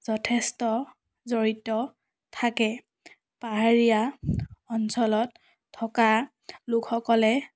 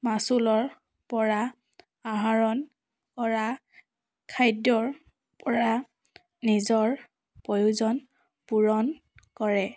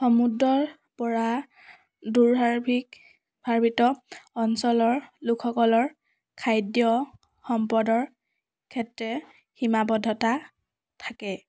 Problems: none marked